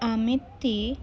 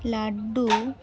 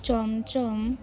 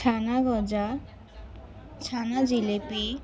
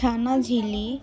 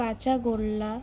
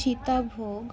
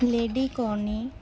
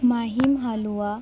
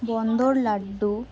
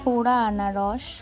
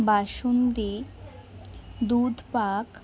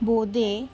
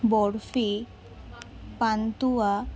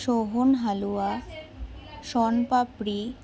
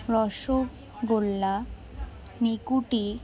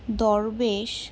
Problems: background sounds at intervals, continuous background conversations